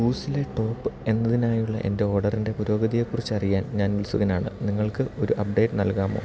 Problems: constant background noise